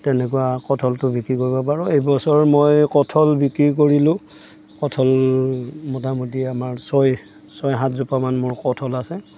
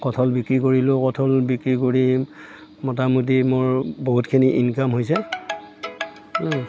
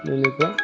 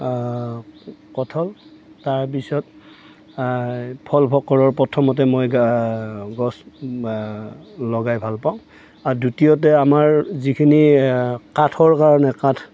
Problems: background sounds at intervals